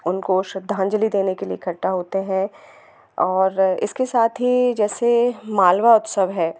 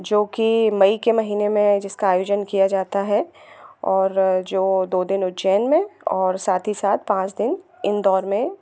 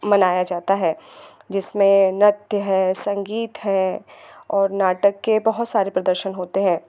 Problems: constant background noise